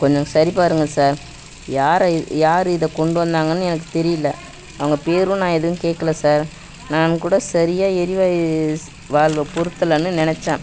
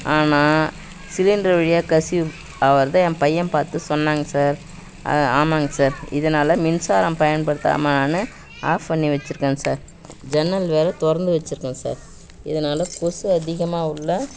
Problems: background sounds at intervals, background conversations at intervals